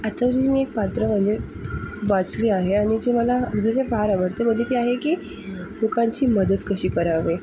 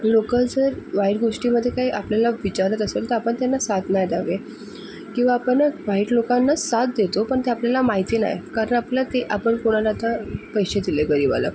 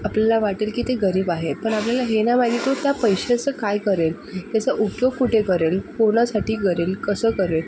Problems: none marked